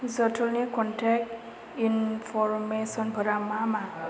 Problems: constant background noise, background conversations at intervals